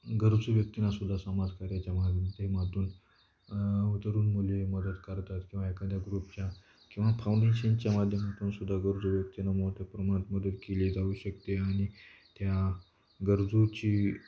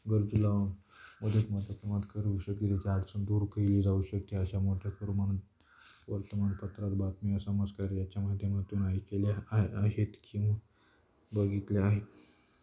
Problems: constant background noise